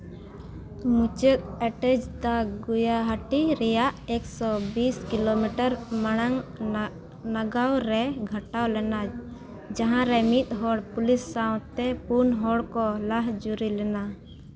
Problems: background sounds at intervals